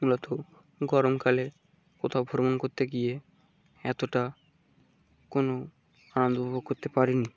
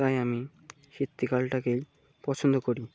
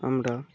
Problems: low volume